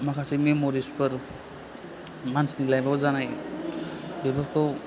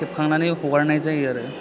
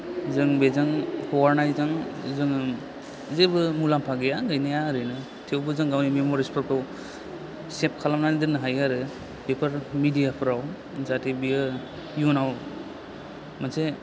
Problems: constant background noise